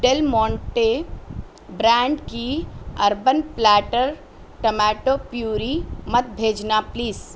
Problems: constant background noise